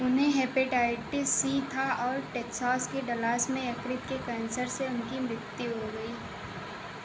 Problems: constant background noise